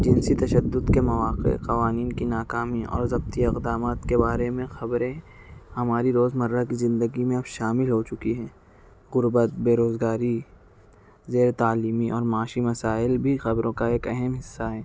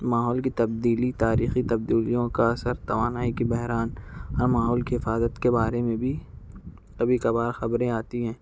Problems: background sounds at intervals